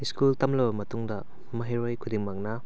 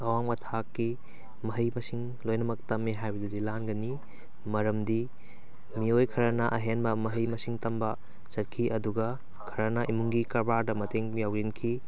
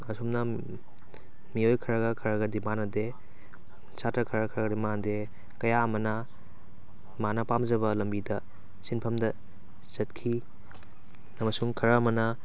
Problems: background sounds at intervals